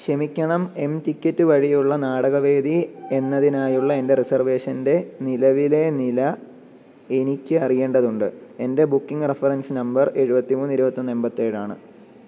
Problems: none marked